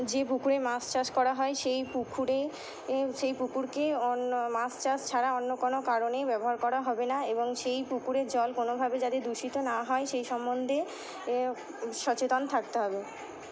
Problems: constant background noise